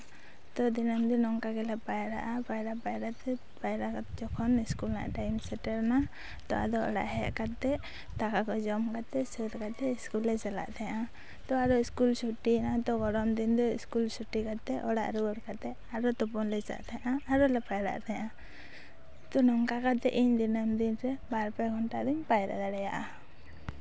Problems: none marked